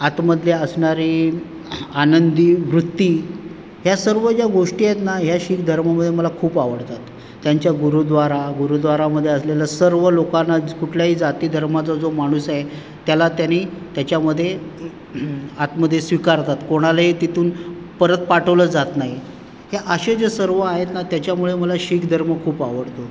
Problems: none marked